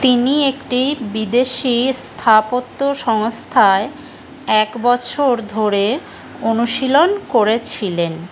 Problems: constant background noise